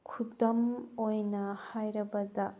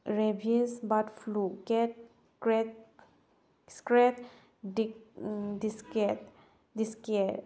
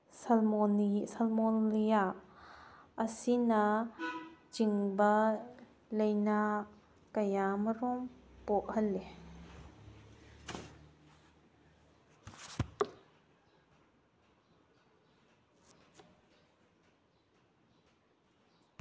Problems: none marked